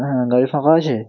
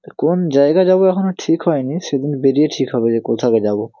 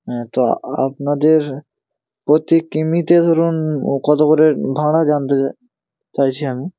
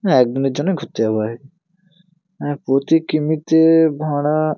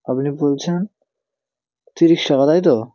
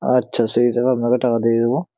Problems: constant background noise